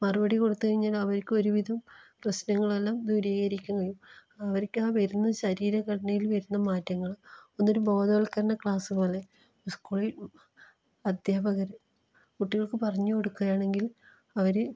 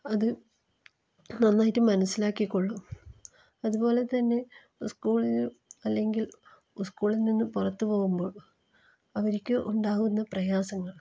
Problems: low volume